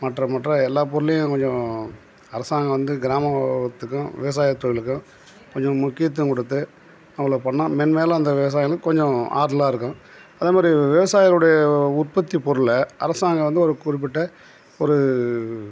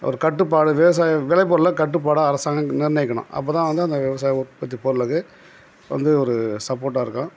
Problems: background sounds at intervals